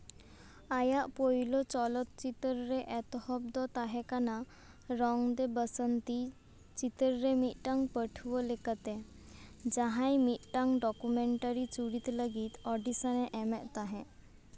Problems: constant background noise